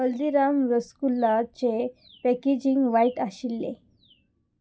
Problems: constant background noise